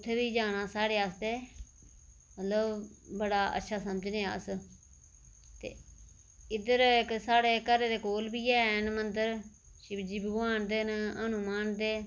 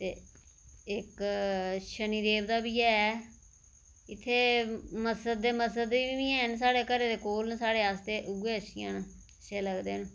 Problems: none marked